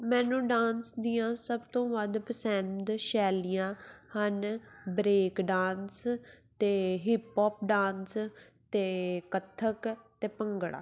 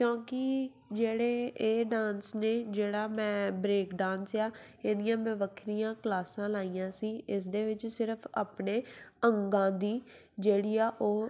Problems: none marked